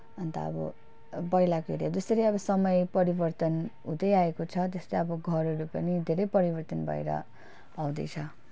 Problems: none marked